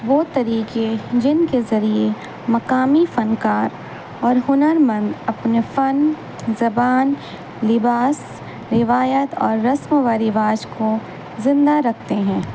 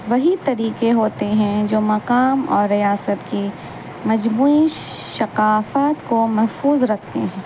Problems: constant background noise